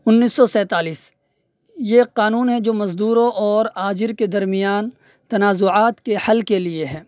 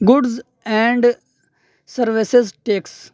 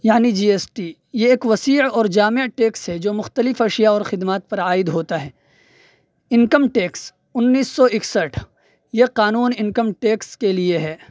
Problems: none marked